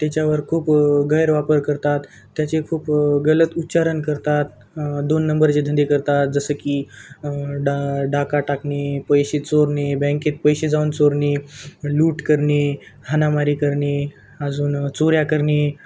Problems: constant background noise, continuous background conversations